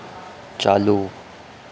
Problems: none marked